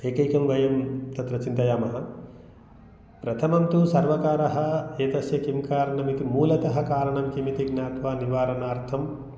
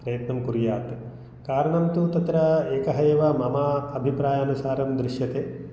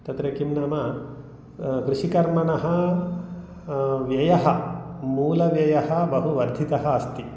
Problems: none marked